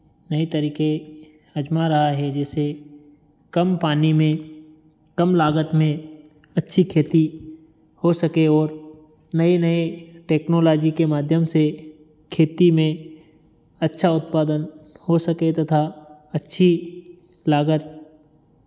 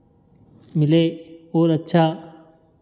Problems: background sounds at intervals